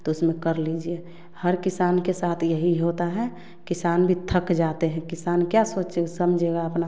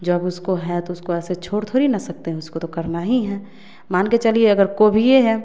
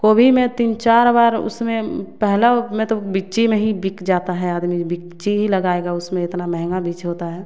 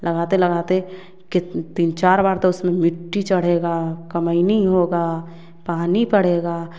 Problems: none marked